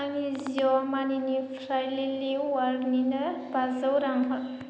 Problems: constant background noise